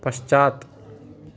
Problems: none marked